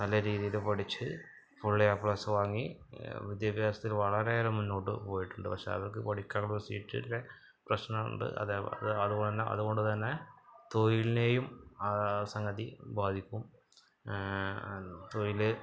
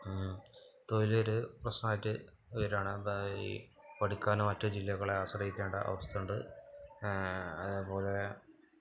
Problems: background sounds at intervals, low volume